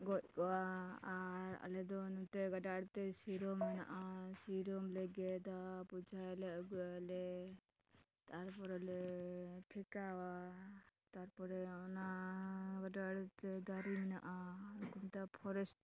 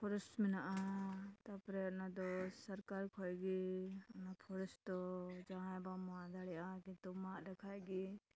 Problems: background conversations at intervals